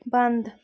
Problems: none marked